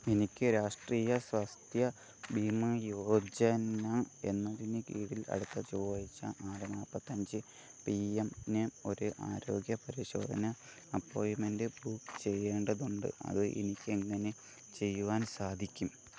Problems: background sounds at intervals, low volume